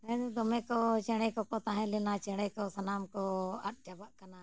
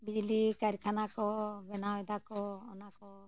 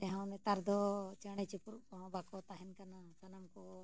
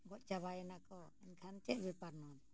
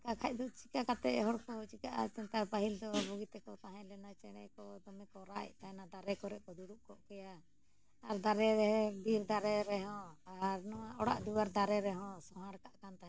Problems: low volume